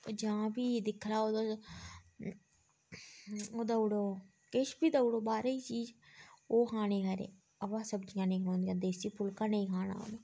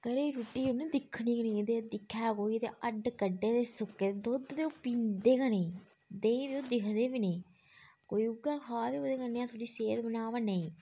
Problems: background conversations at intervals